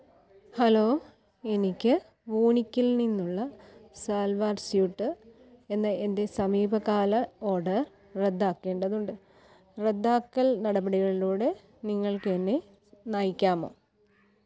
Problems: background sounds at intervals, low volume